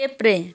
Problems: background sounds at intervals